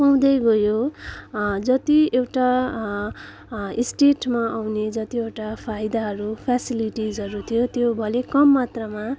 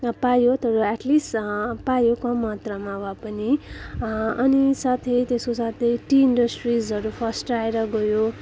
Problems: background sounds at intervals, continuous background conversations